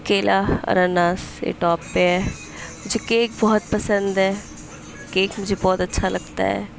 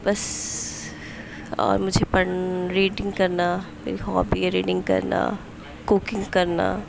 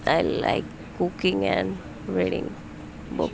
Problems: constant background noise